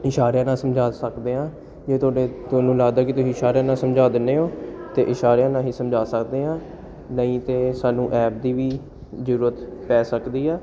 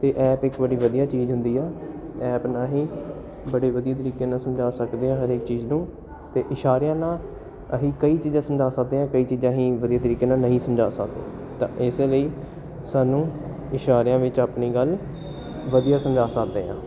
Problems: background sounds at intervals